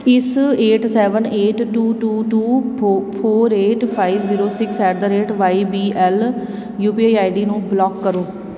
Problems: constant background noise